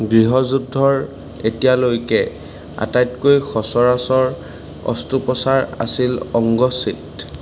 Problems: constant background noise